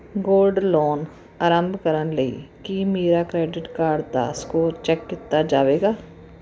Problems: constant background noise